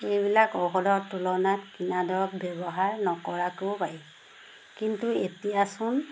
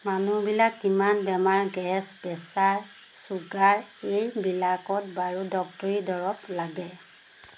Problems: constant background noise